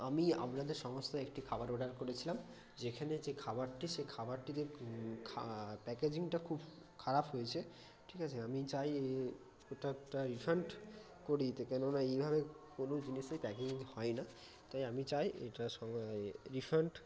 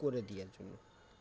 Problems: constant background noise, background conversations at intervals